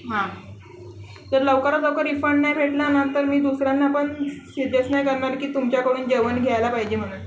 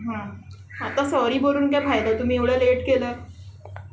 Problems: constant background noise, background conversations at intervals, echo